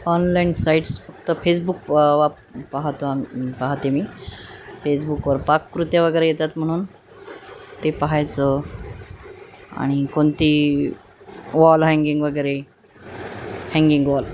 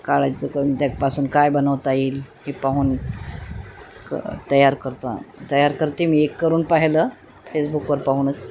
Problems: constant background noise